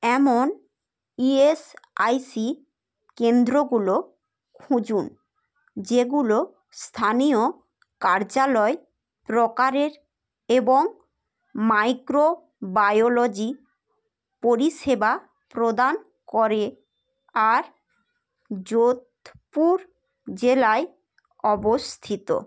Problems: background sounds at intervals, background conversations at intervals